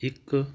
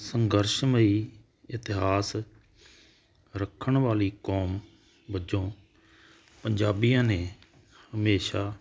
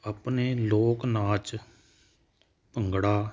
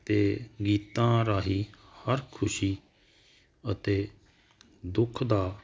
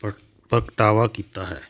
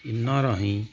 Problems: none marked